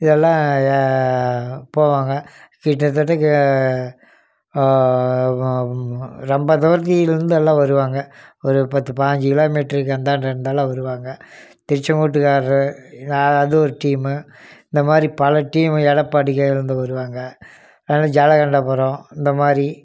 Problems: none marked